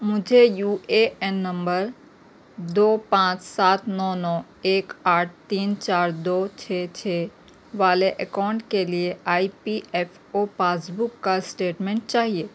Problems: none marked